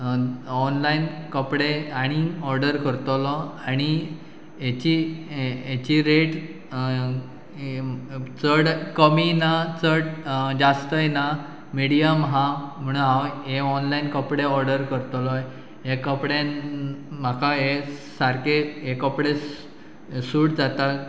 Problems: none marked